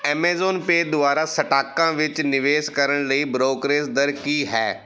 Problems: background sounds at intervals